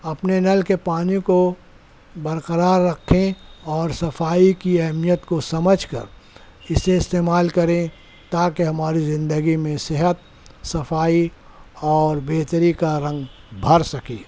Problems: none marked